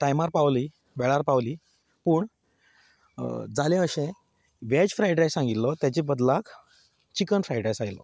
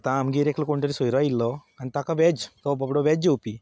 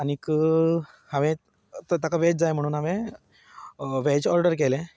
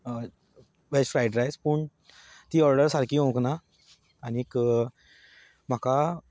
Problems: none marked